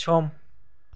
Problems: low volume